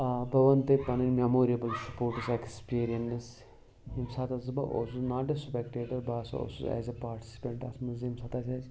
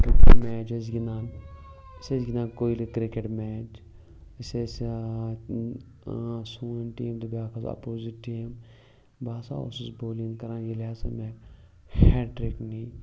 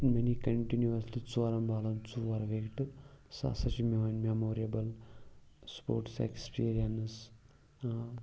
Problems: background sounds at intervals, background conversations at intervals